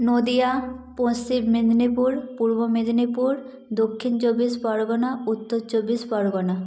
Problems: echo